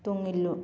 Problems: none marked